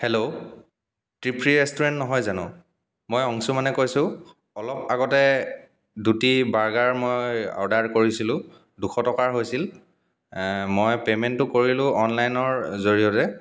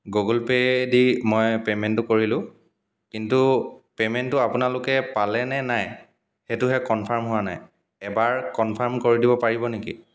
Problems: echo